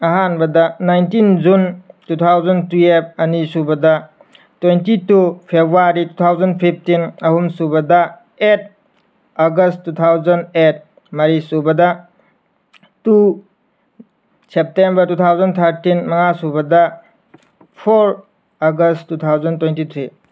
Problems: none marked